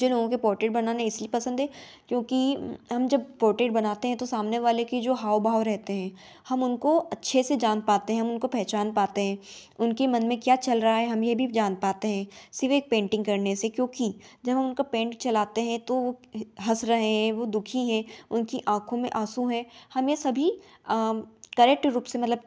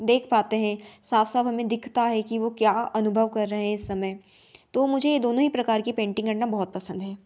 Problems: background sounds at intervals